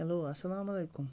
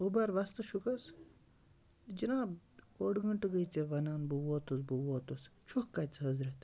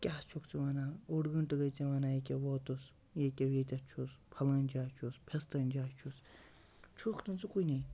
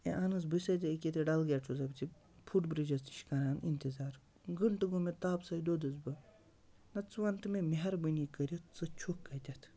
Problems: low volume